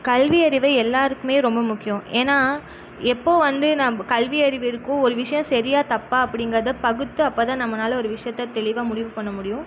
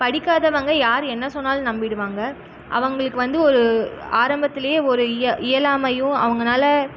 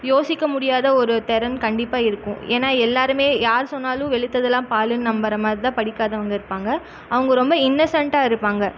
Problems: none marked